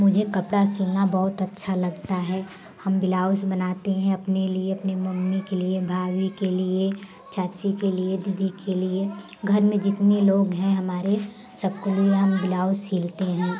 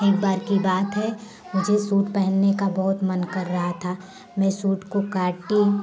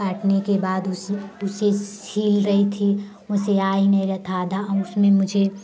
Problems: constant background noise